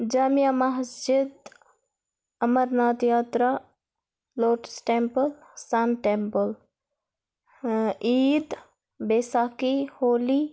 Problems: none marked